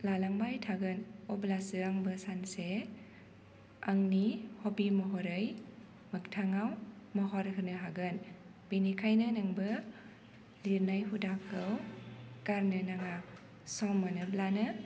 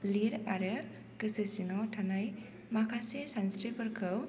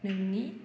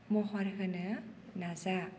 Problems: constant background noise